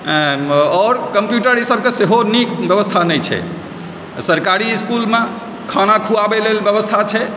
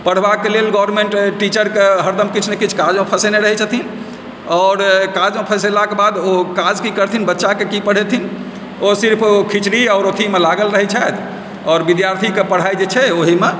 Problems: background sounds at intervals